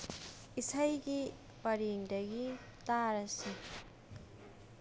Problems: constant background noise